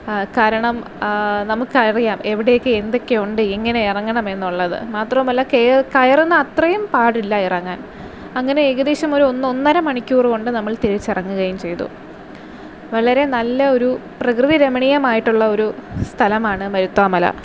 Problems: constant background noise